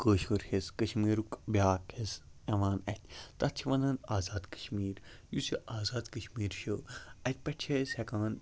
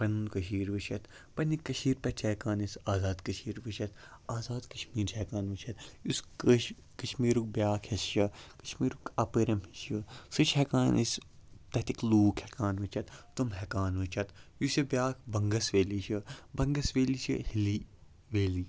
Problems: low volume